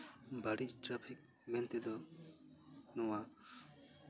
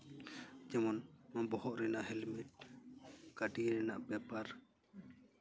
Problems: background sounds at intervals